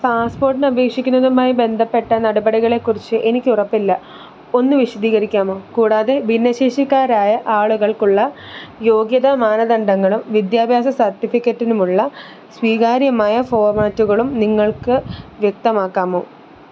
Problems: constant background noise